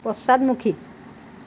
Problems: none marked